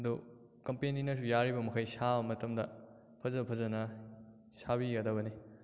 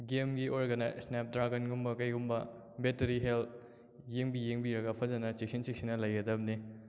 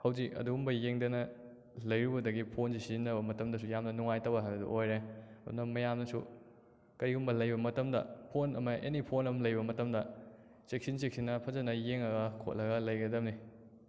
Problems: echo